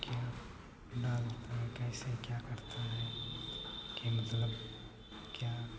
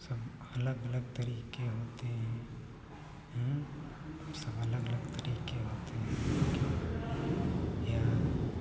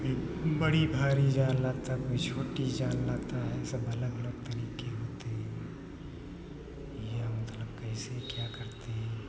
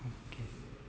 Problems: background sounds at intervals